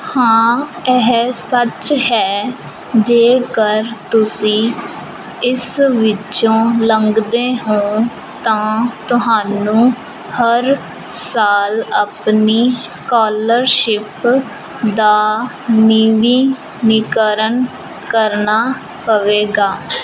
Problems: constant background noise